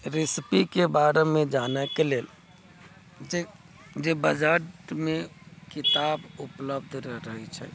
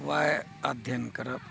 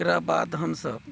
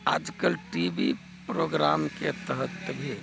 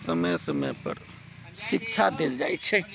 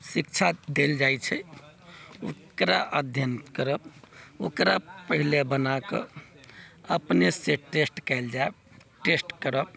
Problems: background sounds at intervals